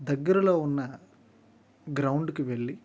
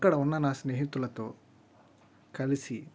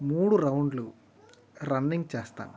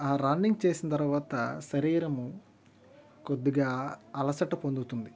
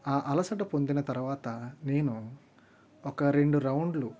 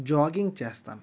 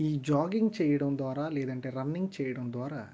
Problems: none marked